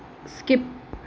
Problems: constant background noise